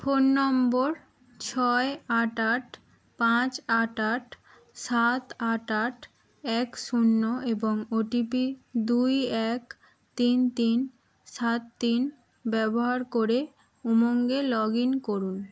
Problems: background sounds at intervals